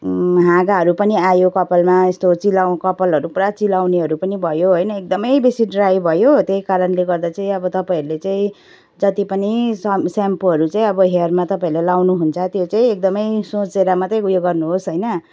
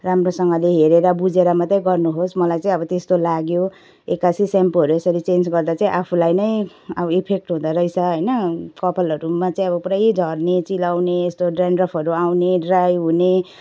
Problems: background sounds at intervals